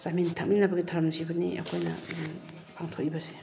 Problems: none marked